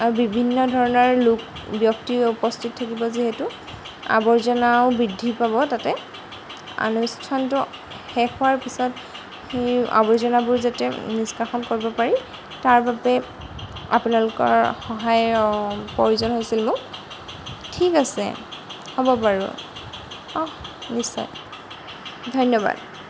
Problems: background sounds at intervals